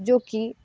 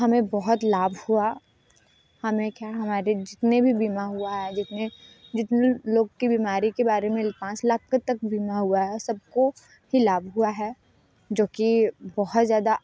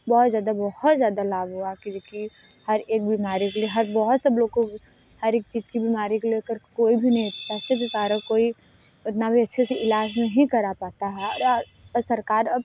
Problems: constant background noise